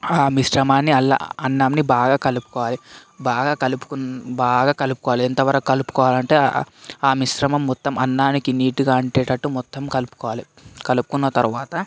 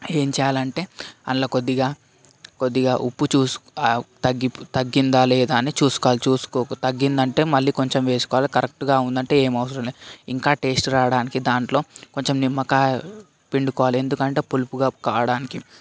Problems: constant background noise